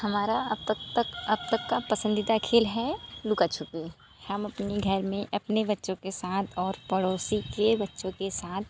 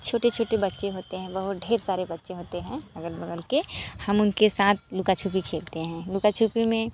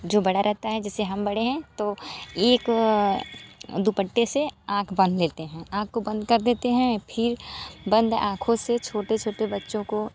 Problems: none marked